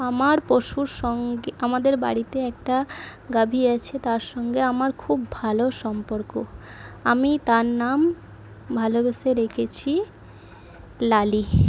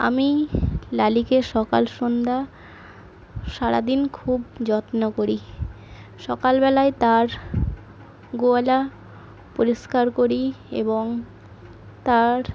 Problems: background sounds at intervals